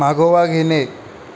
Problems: none marked